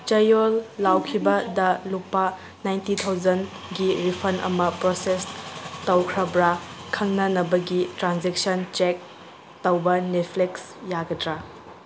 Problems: background sounds at intervals